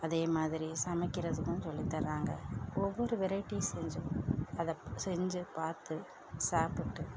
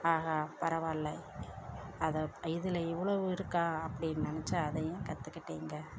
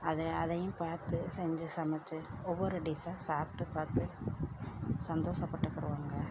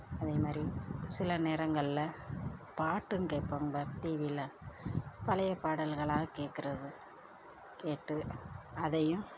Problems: none marked